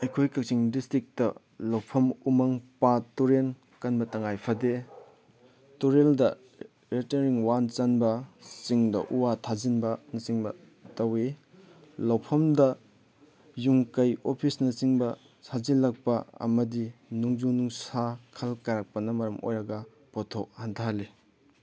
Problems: background sounds at intervals